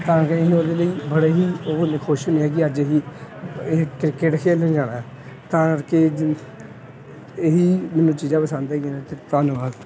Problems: none marked